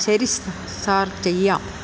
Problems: constant background noise